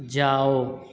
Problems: background conversations at intervals